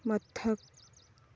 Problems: low volume